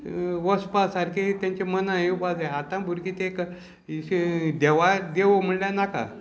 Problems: constant background noise, background conversations at intervals